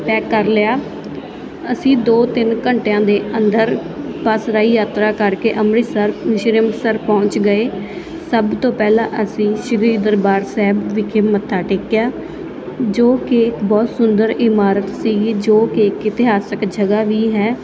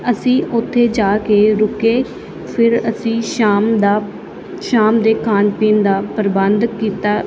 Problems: constant background noise